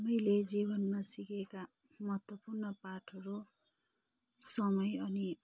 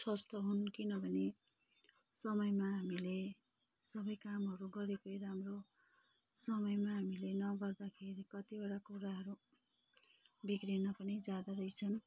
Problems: low volume